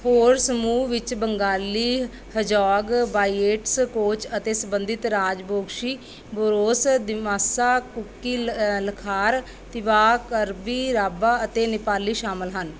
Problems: background sounds at intervals